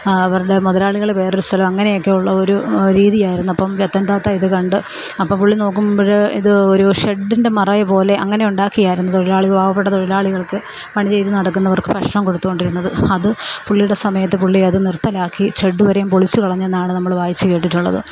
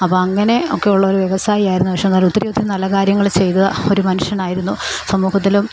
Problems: constant background noise